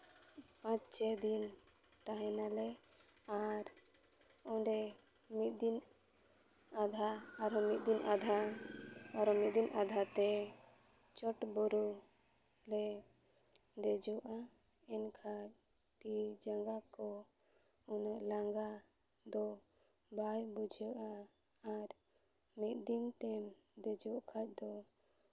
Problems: none marked